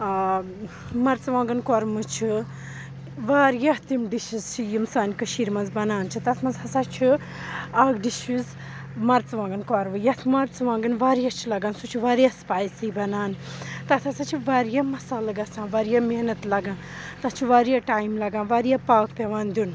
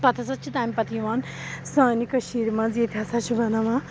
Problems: background sounds at intervals, background conversations at intervals